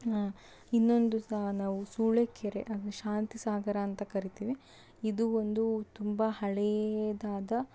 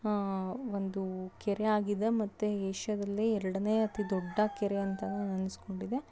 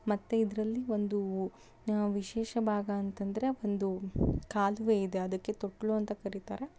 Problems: background sounds at intervals